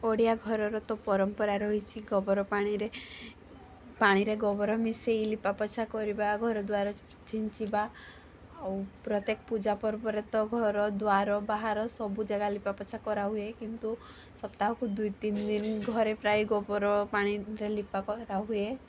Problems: constant background noise, background conversations at intervals